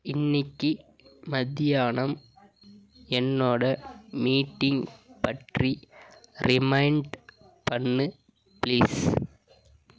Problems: none marked